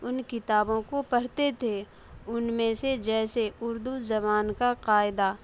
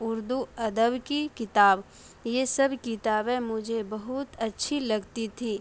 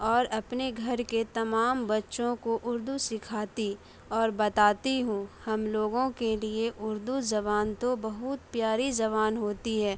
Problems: none marked